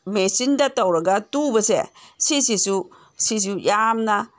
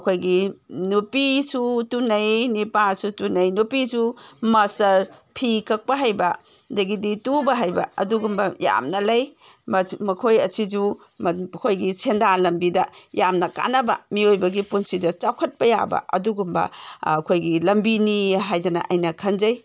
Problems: none marked